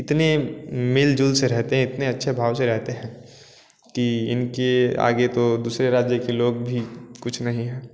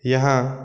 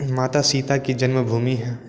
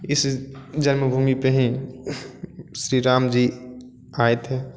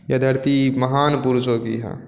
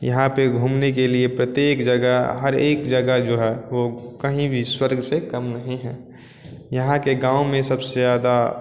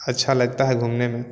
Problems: none marked